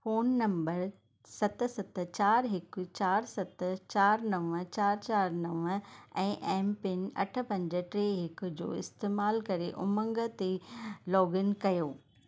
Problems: none marked